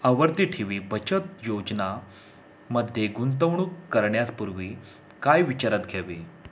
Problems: constant background noise